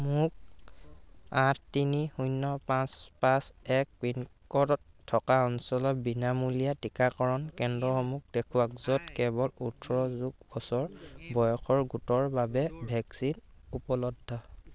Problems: constant background noise